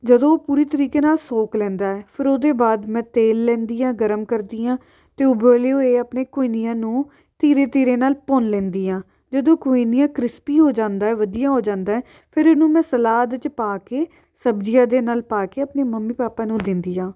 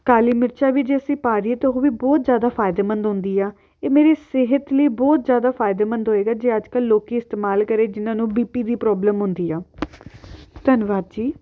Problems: background sounds at intervals